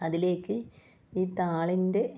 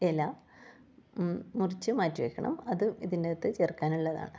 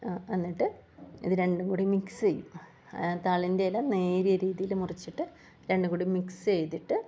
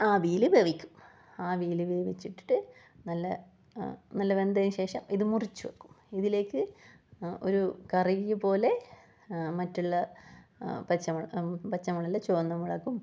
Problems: none marked